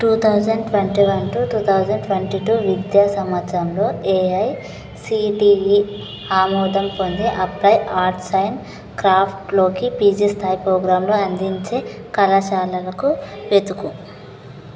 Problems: constant background noise